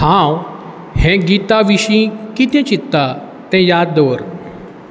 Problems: constant background noise